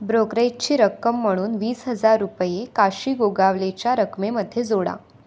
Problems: none marked